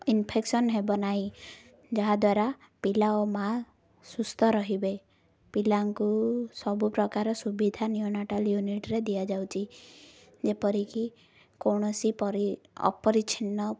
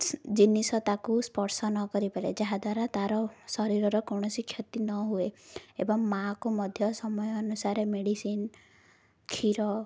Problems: none marked